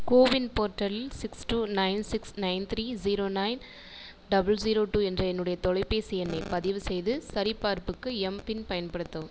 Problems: none marked